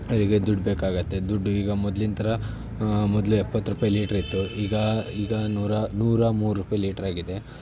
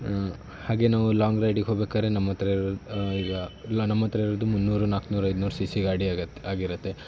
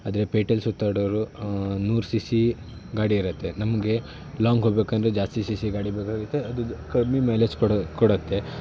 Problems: constant background noise